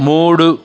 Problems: constant background noise, background conversations at intervals